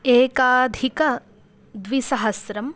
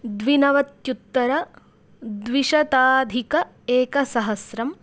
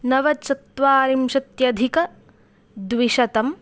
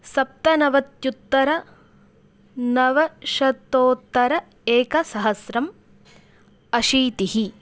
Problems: none marked